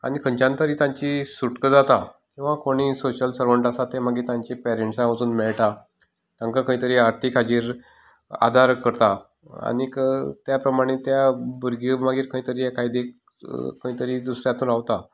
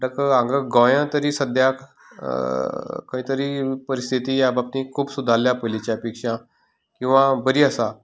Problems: background conversations at intervals